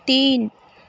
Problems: constant background noise